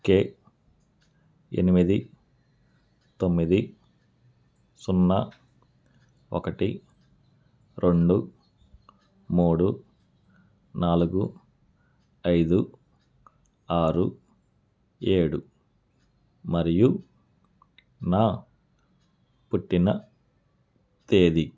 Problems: none marked